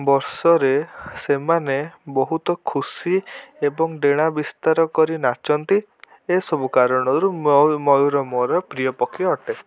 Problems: none marked